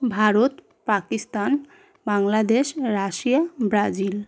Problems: none marked